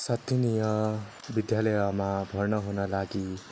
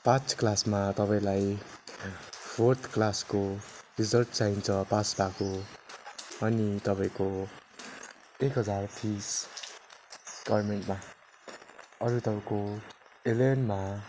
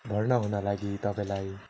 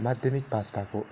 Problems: none marked